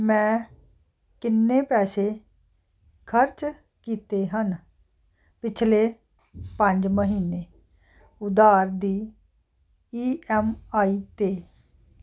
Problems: none marked